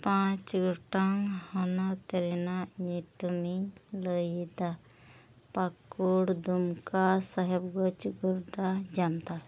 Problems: background sounds at intervals, low volume